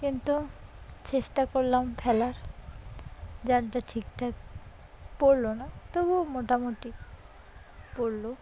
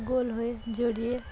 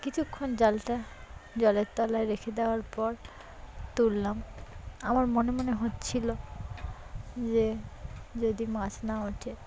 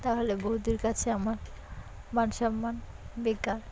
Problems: background sounds at intervals, continuous background conversations